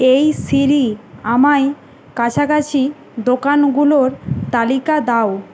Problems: constant background noise